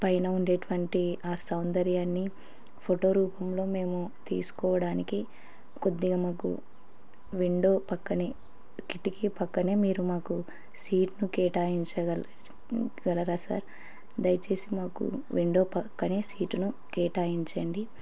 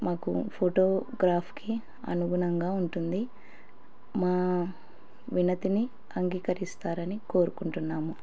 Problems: none marked